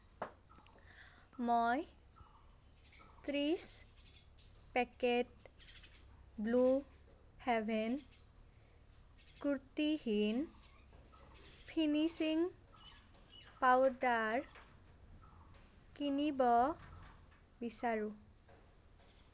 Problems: none marked